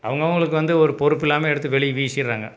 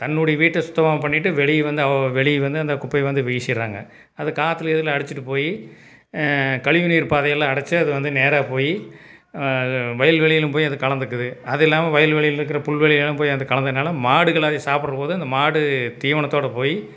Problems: none marked